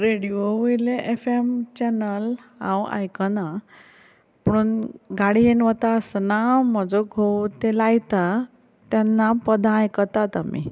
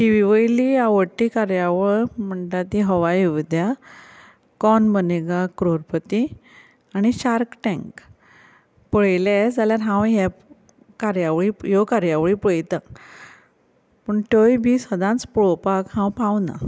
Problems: constant background noise